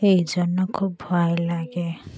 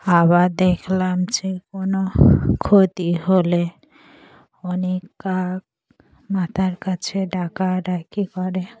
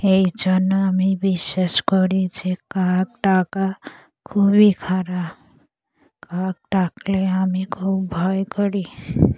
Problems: background conversations at intervals